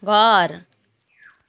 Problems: background conversations at intervals